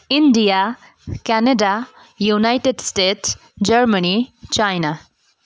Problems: none marked